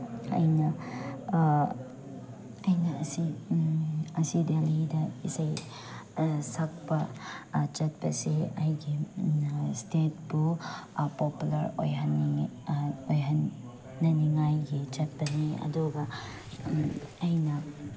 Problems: none marked